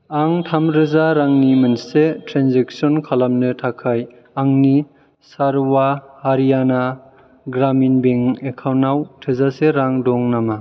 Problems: background sounds at intervals